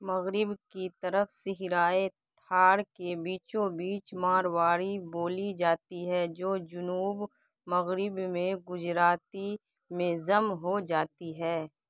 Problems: background sounds at intervals, low volume